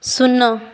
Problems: background sounds at intervals